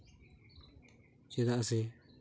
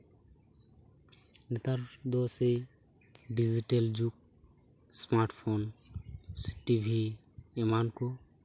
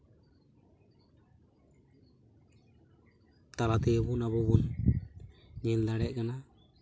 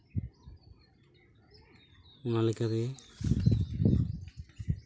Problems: background sounds at intervals